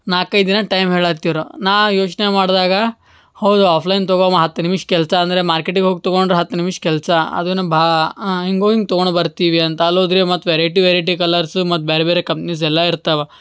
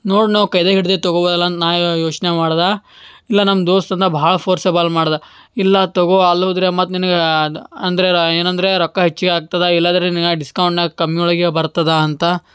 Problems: none marked